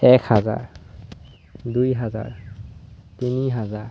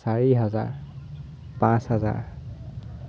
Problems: constant background noise